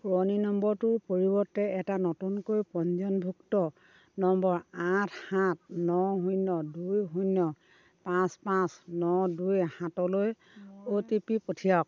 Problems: constant background noise